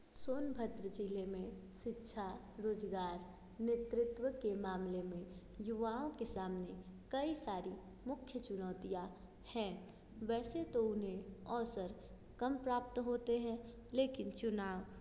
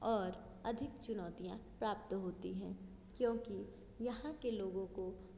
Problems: constant background noise